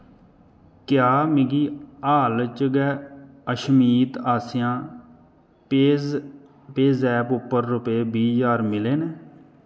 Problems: none marked